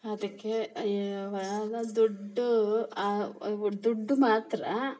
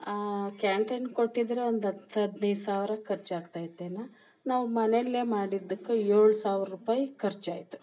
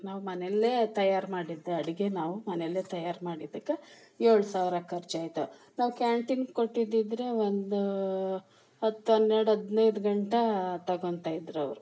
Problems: none marked